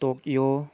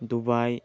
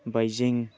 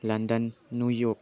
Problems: low volume